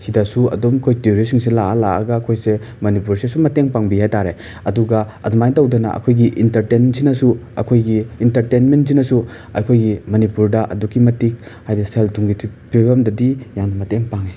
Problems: background sounds at intervals